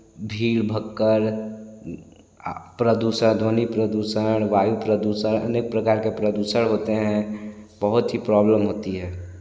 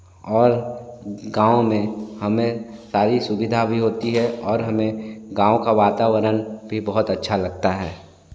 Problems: constant background noise, echo